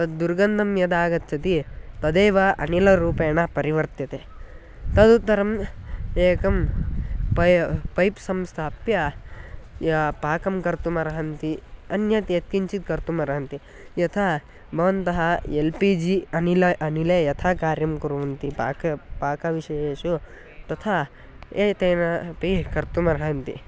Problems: none marked